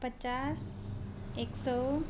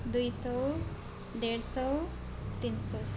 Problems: none marked